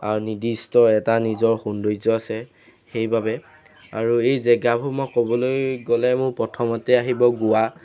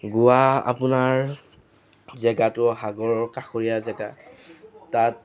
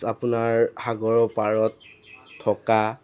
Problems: constant background noise